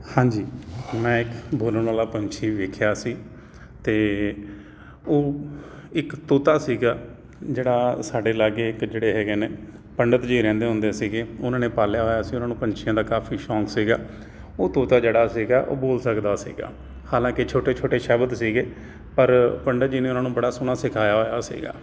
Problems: constant background noise